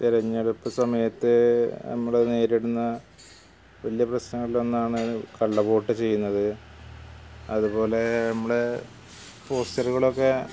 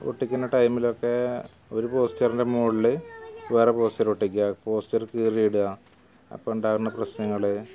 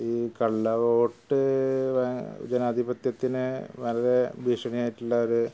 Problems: none marked